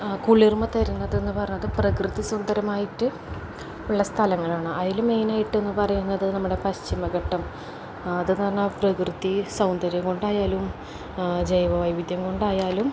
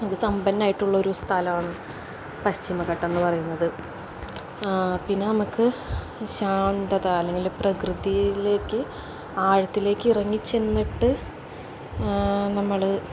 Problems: none marked